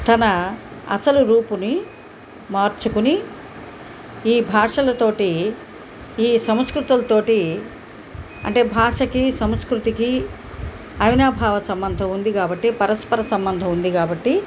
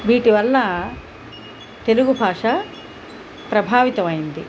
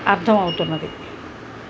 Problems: background sounds at intervals